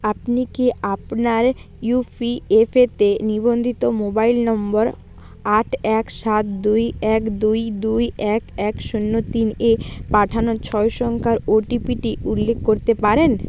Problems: none marked